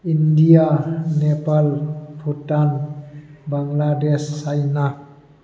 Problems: constant background noise